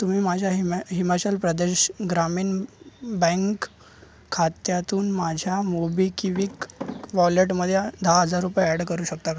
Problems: none marked